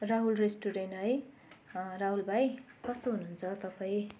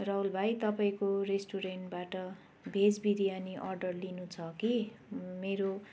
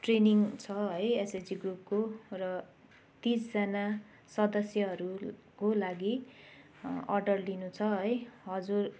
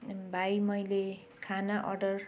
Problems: constant background noise